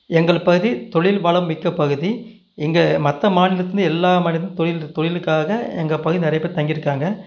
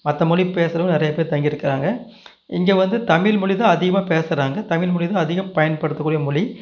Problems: none marked